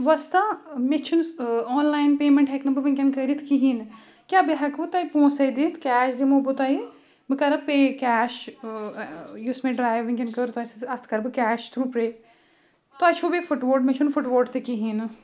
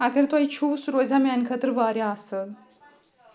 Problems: none marked